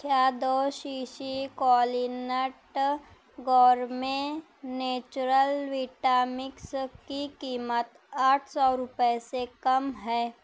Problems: none marked